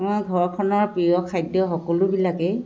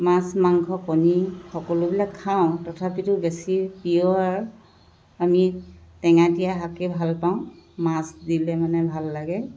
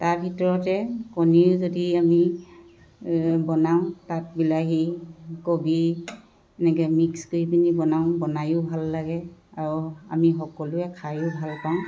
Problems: constant background noise